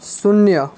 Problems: constant background noise